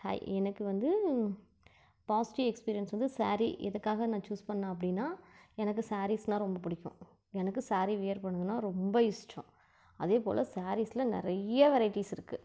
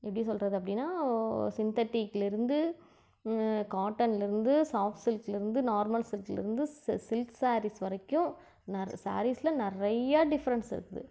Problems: none marked